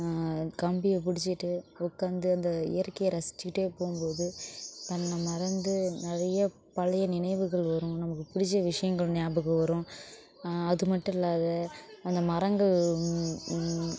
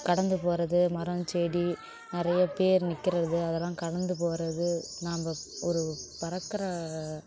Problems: constant background noise, background conversations at intervals